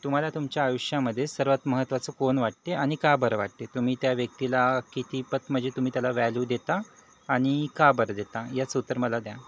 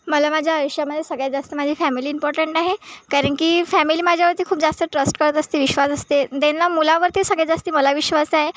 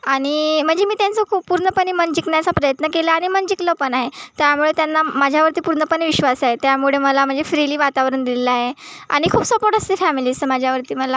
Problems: none marked